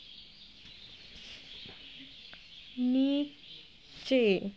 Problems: constant background noise